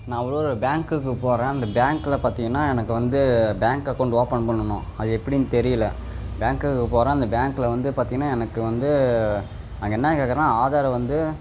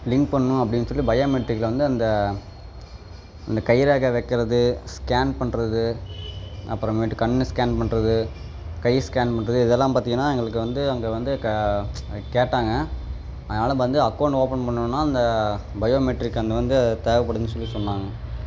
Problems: background sounds at intervals